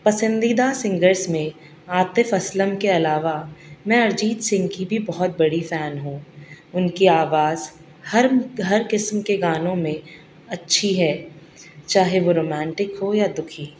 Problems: constant background noise